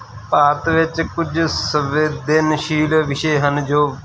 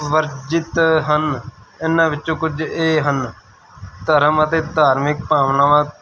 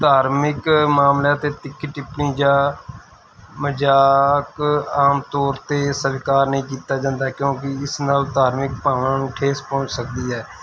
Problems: constant background noise